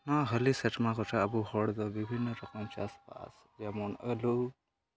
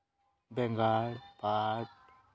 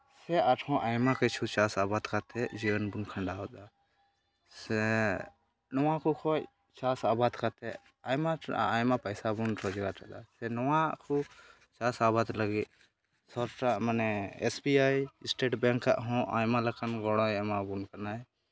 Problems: background sounds at intervals, continuous background conversations